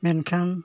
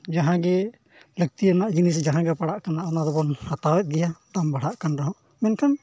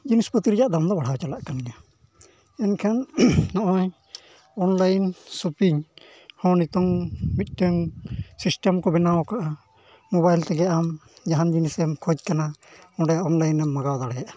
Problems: none marked